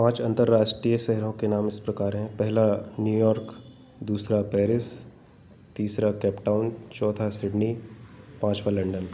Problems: background sounds at intervals